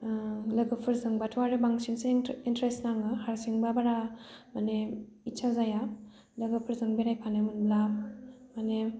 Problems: low volume